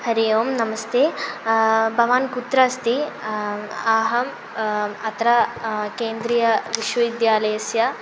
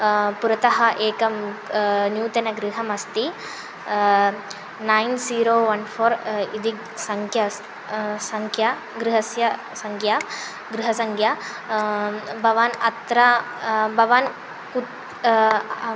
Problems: constant background noise